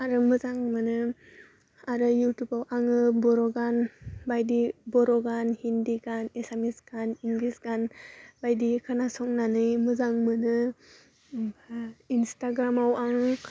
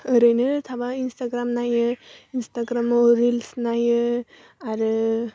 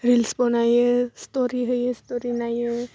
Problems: constant background noise